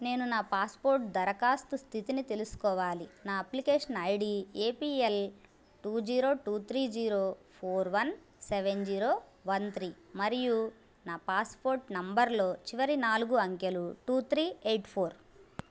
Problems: none marked